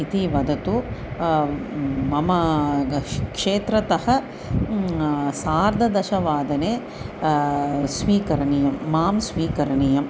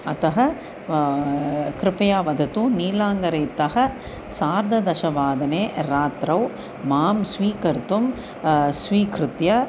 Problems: constant background noise